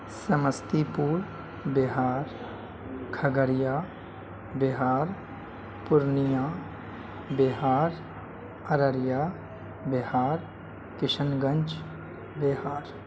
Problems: constant background noise, low volume